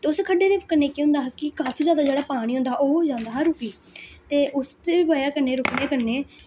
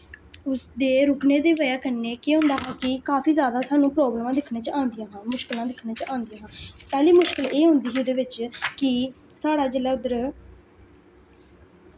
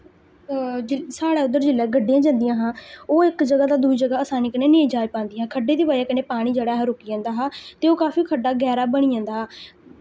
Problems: constant background noise